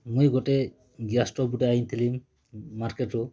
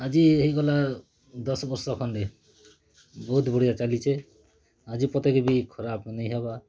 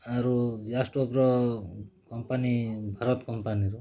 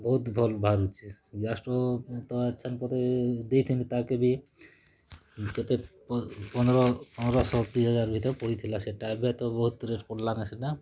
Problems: none marked